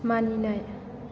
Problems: constant background noise